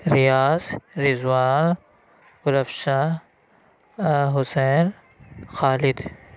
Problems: none marked